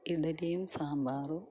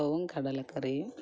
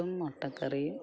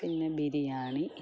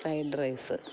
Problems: background sounds at intervals, low volume